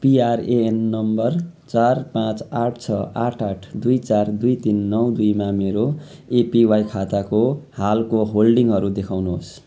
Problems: background sounds at intervals